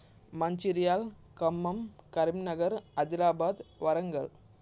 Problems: constant background noise